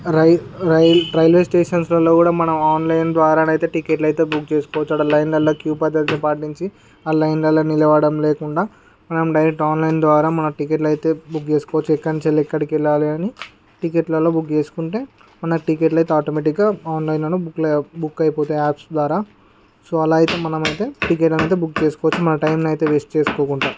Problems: background sounds at intervals